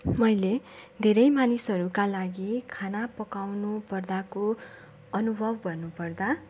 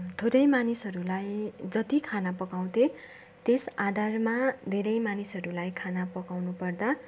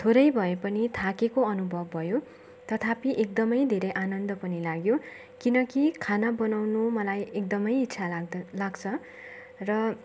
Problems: constant background noise